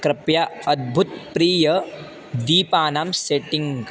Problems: constant background noise